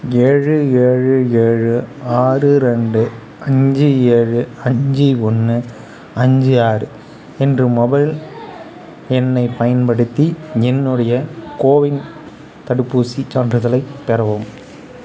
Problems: background conversations at intervals